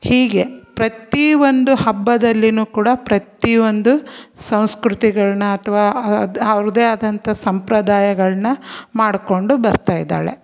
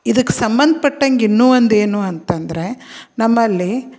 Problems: none marked